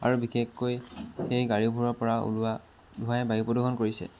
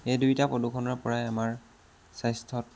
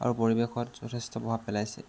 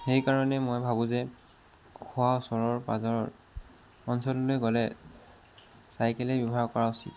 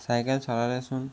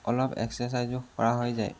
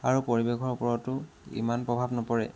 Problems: constant background noise